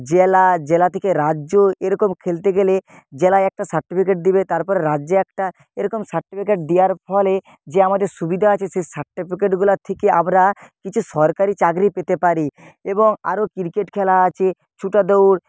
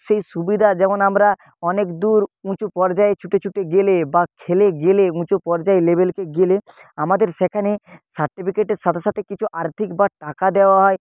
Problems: none marked